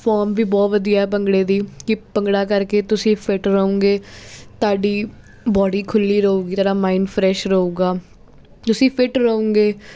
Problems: constant background noise